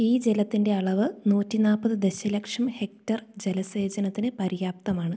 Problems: none marked